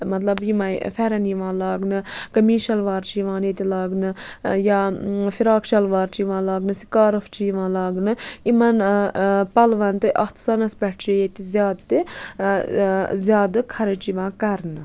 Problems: constant background noise